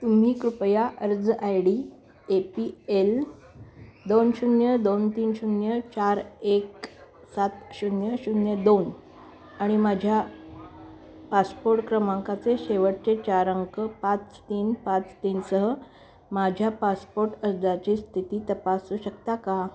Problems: constant background noise, continuous background conversations